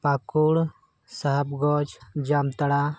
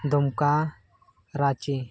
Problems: none marked